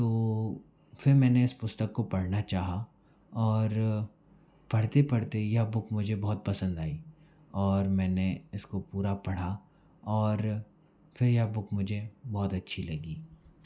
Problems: background sounds at intervals